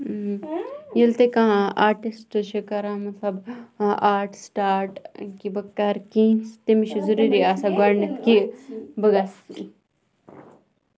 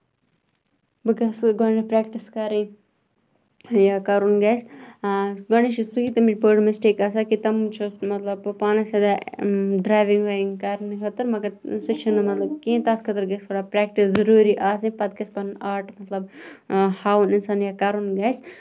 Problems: background conversations at intervals